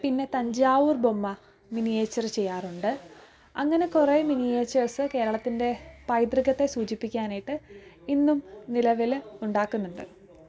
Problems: low volume